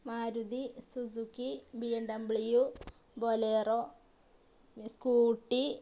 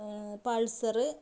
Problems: none marked